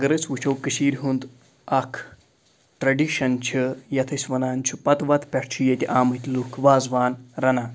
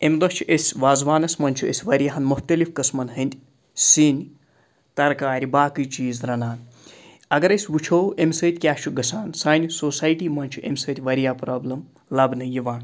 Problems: background sounds at intervals